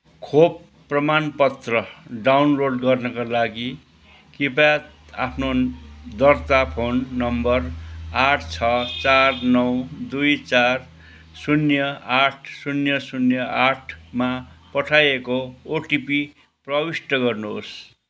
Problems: none marked